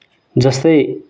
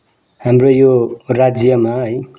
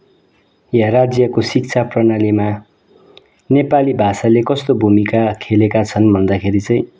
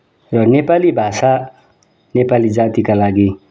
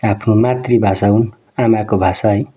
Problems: background conversations at intervals